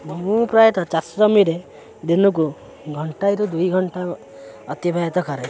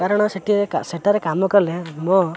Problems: constant background noise, continuous background conversations